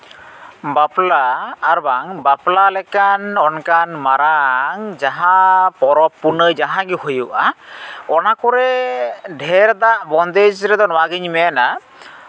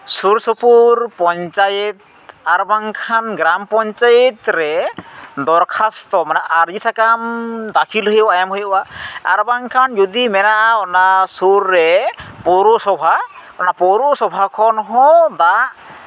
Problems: none marked